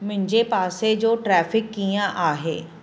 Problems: constant background noise